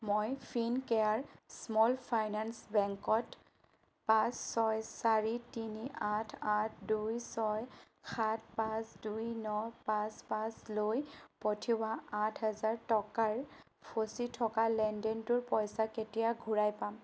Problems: none marked